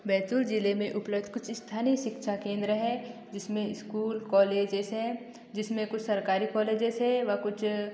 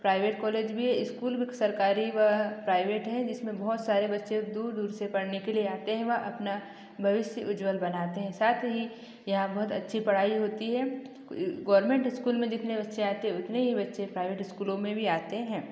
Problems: echo